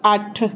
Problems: background sounds at intervals